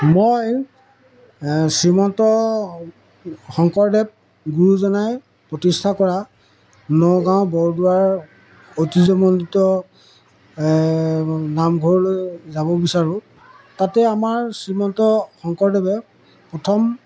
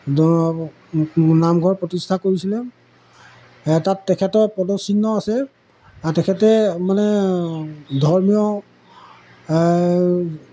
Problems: background sounds at intervals, background conversations at intervals